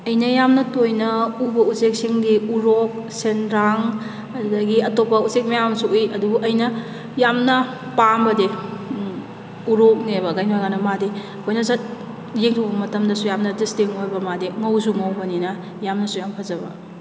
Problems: constant background noise